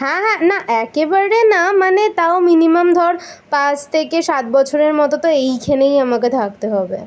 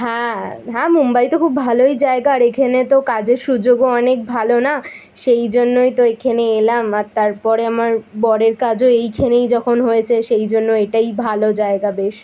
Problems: none marked